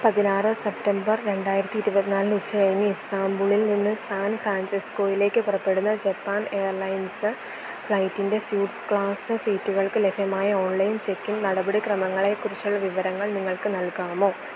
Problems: constant background noise